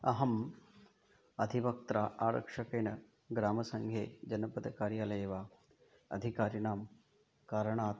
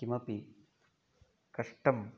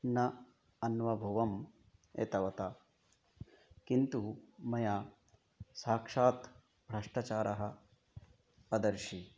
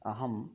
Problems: low volume